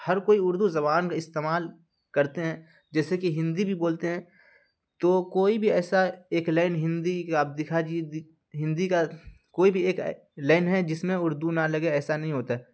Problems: constant background noise